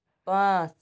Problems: none marked